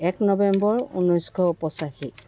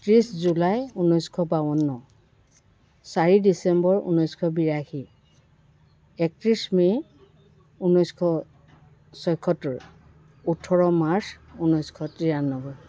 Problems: background sounds at intervals, continuous background conversations